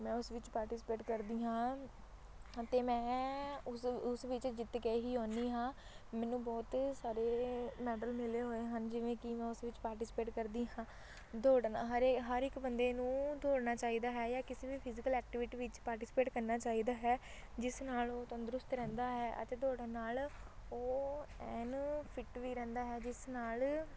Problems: constant background noise